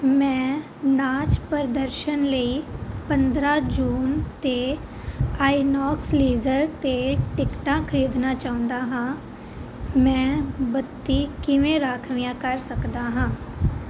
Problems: constant background noise